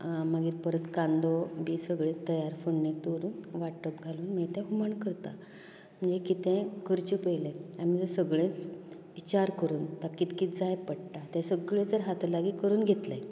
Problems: continuous background conversations